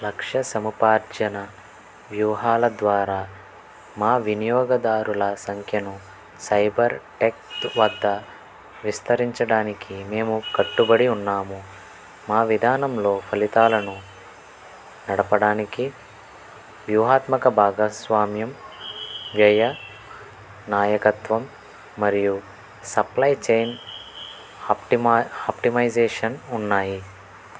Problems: constant background noise